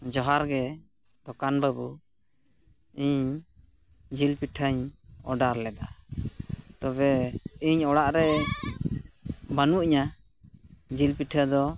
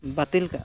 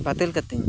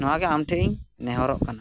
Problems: none marked